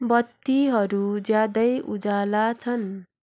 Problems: background sounds at intervals